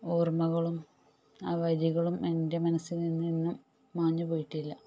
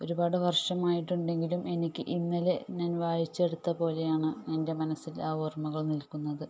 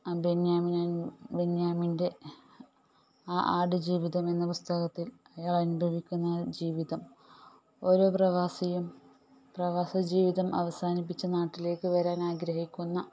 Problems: low volume